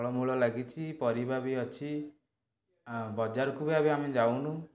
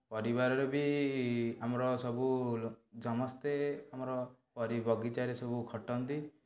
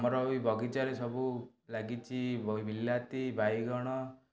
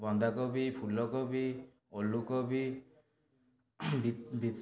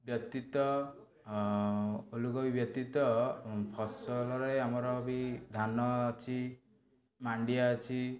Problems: background conversations at intervals